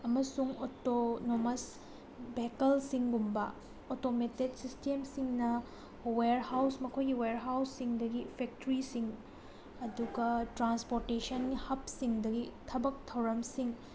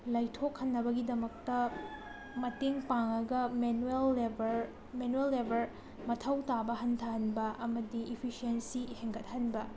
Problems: constant background noise